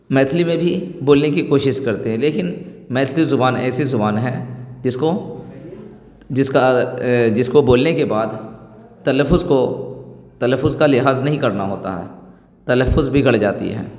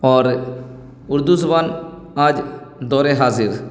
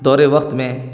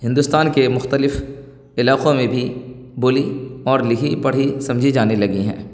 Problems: none marked